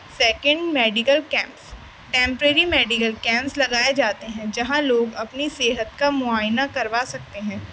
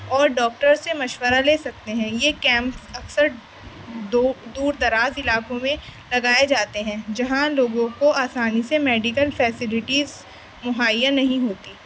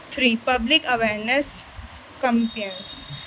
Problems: constant background noise